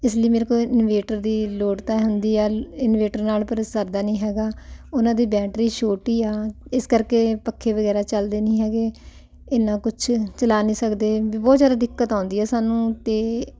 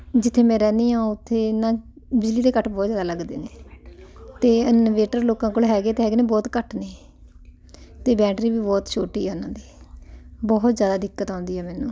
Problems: background conversations at intervals